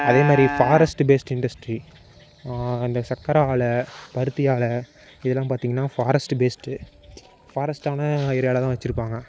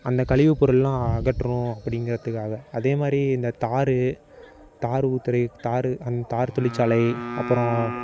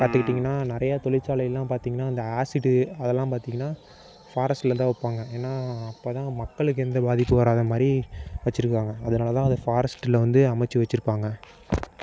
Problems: constant background noise